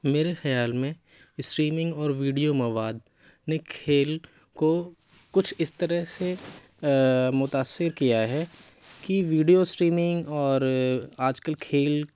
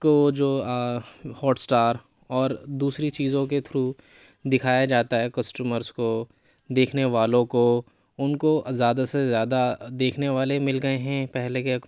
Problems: none marked